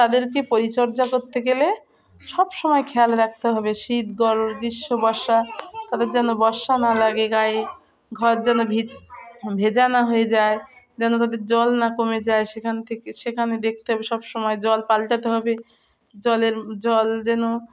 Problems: constant background noise, continuous background conversations